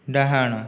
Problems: none marked